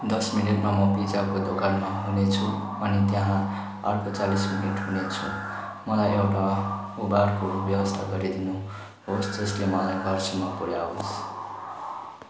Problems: constant background noise